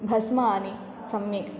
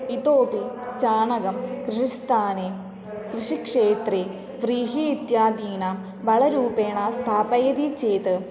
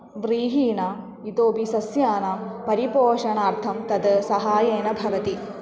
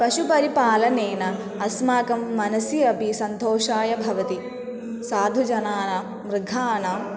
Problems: constant background noise, continuous background conversations